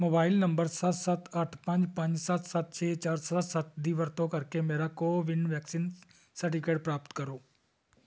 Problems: none marked